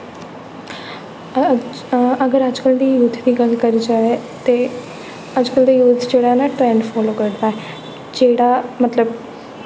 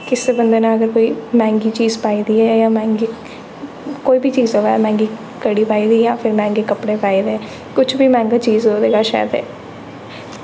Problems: echo